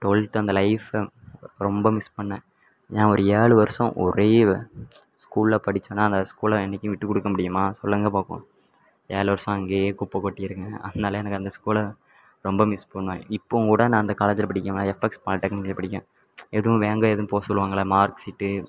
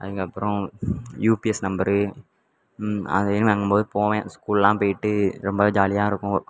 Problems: none marked